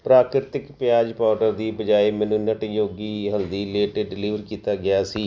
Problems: background sounds at intervals